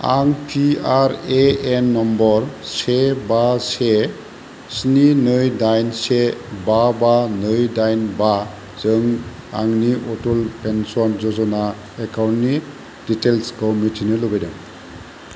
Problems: constant background noise